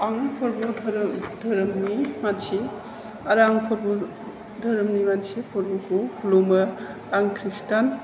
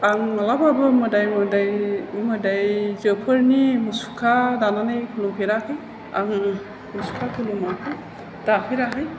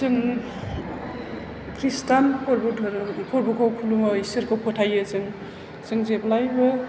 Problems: low volume